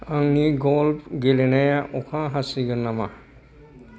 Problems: background conversations at intervals